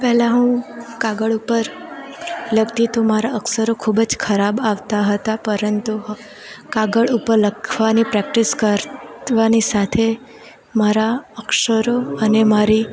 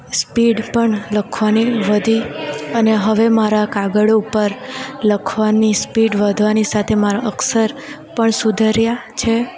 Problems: constant background noise